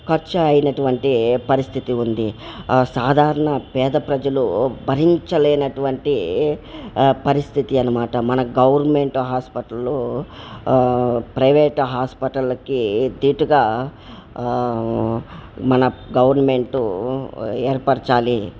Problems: background sounds at intervals